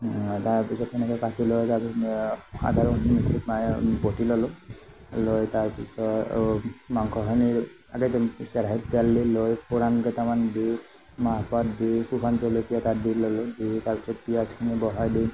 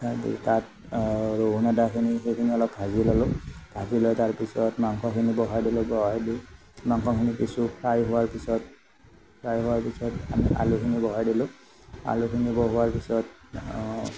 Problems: background sounds at intervals